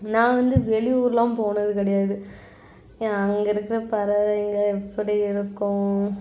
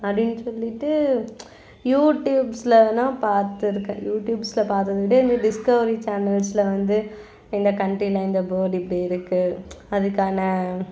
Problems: constant background noise, background conversations at intervals